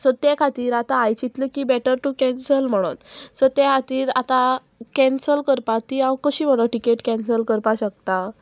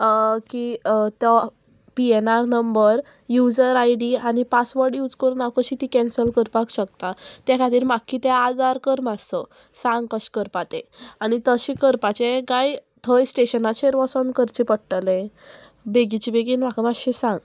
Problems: constant background noise, background conversations at intervals